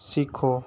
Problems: constant background noise